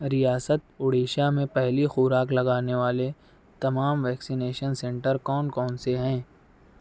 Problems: none marked